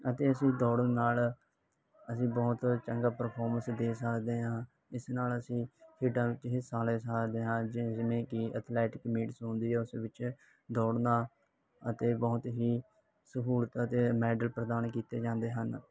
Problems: background sounds at intervals